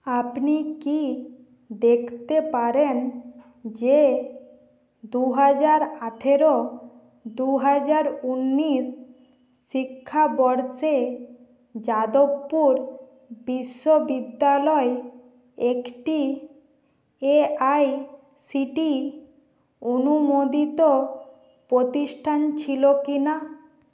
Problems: background sounds at intervals